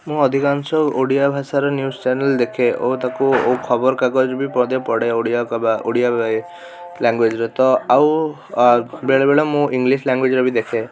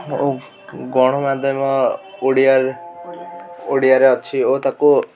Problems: background sounds at intervals, background conversations at intervals